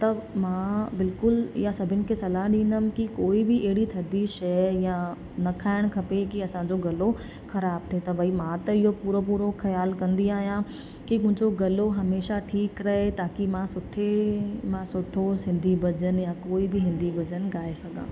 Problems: constant background noise, echo